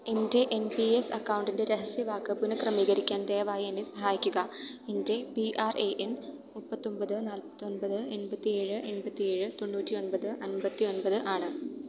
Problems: low volume